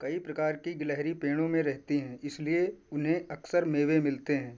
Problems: none marked